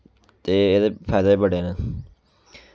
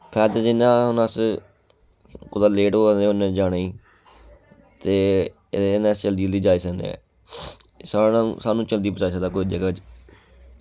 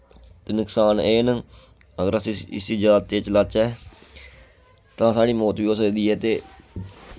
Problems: background sounds at intervals